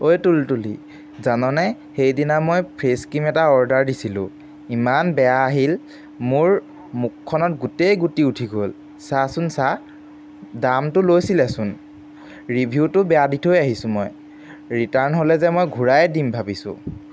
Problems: background sounds at intervals